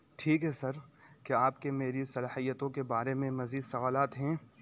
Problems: none marked